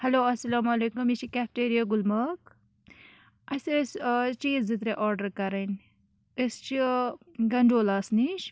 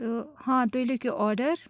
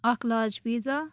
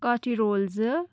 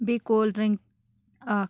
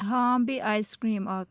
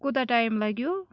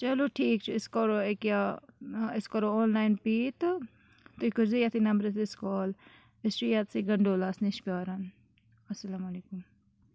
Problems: none marked